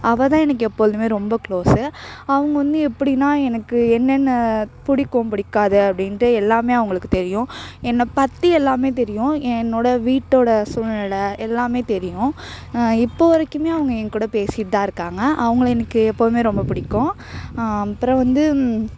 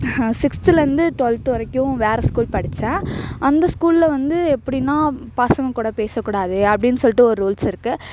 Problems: background sounds at intervals, background conversations at intervals